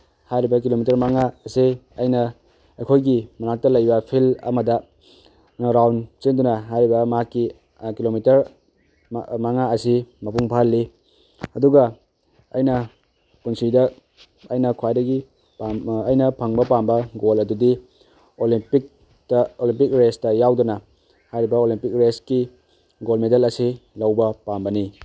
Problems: none marked